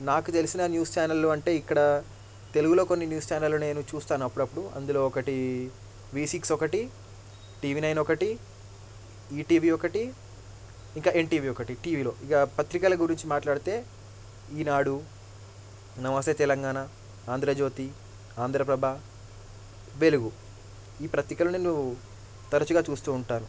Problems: low volume